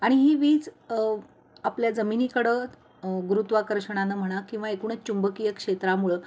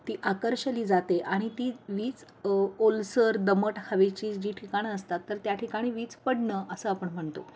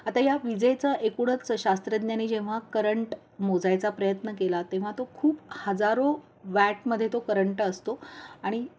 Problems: none marked